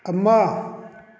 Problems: none marked